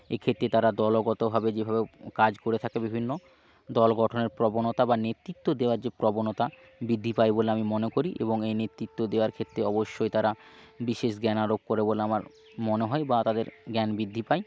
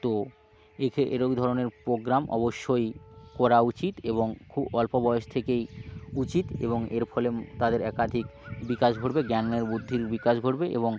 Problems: constant background noise